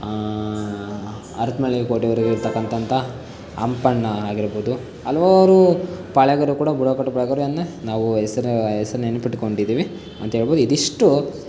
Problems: constant background noise